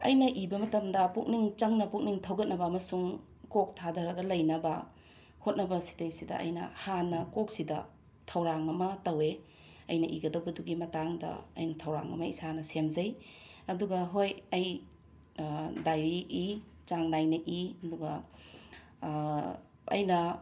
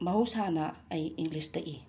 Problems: background sounds at intervals